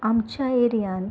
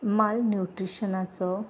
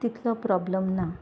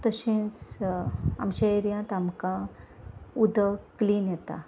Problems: none marked